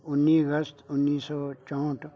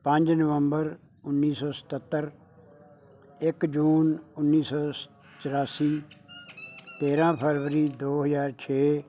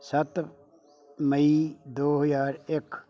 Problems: none marked